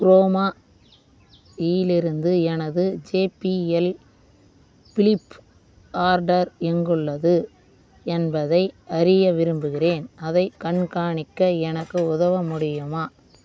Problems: none marked